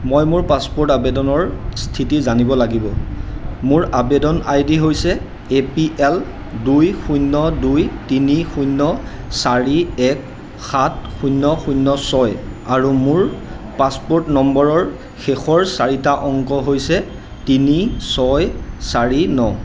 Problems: none marked